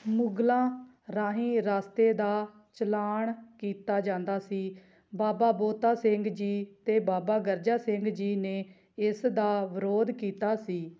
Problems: none marked